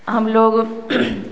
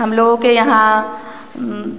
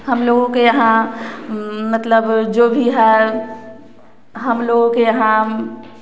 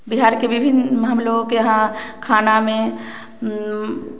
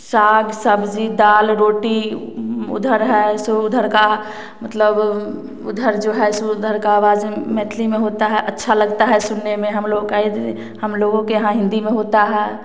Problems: none marked